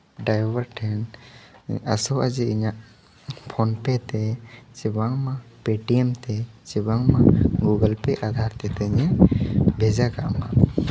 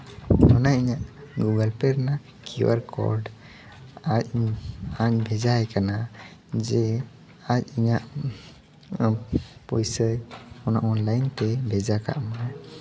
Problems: none marked